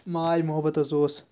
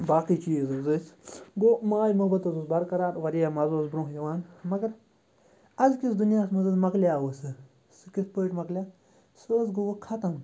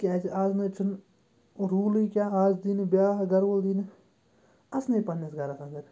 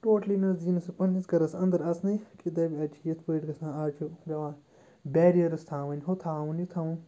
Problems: low volume